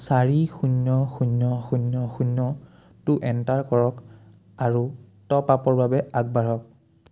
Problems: none marked